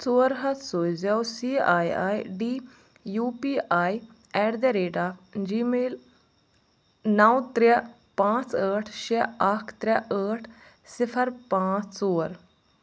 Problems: none marked